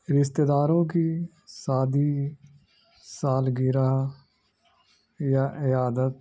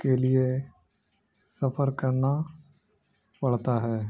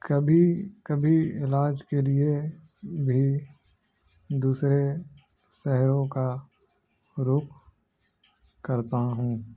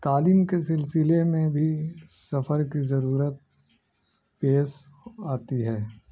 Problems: background sounds at intervals